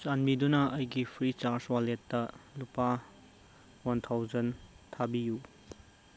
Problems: constant background noise